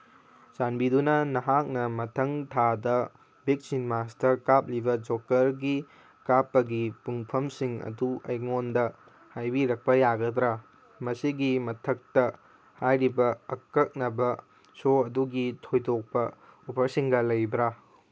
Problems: none marked